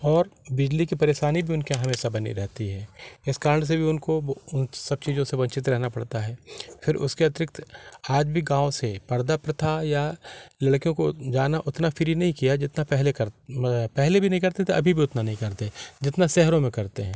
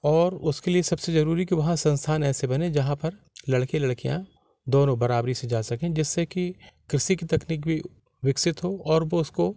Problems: none marked